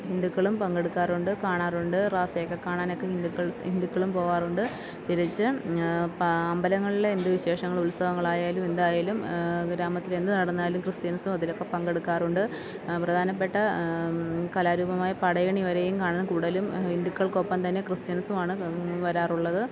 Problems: background sounds at intervals